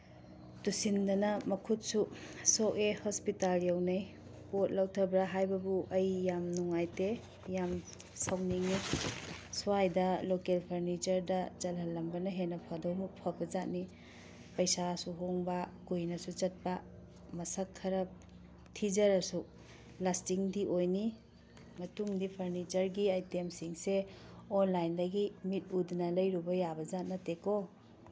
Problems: none marked